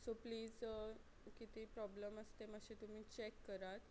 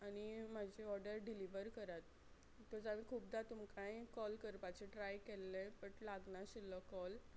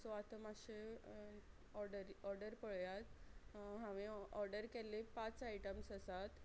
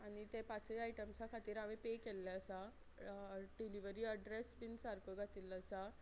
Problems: low volume